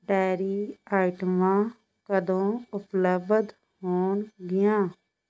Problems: constant background noise